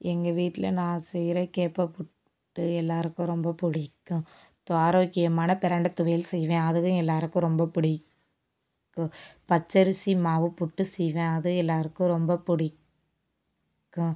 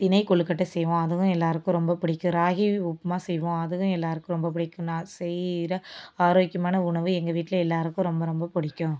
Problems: constant background noise